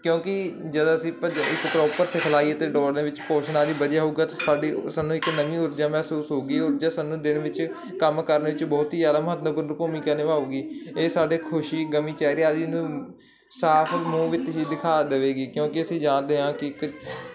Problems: constant background noise